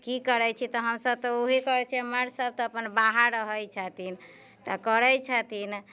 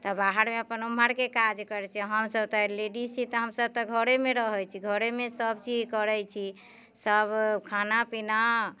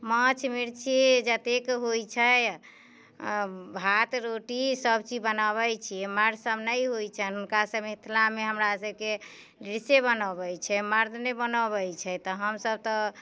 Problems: none marked